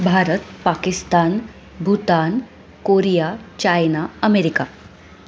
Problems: none marked